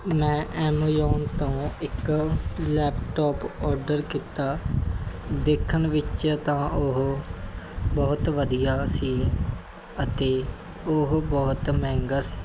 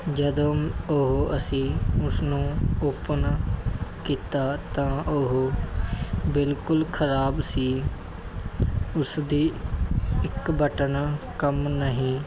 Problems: constant background noise